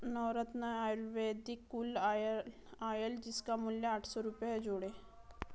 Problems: low volume